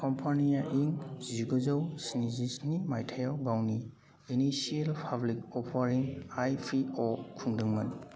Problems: none marked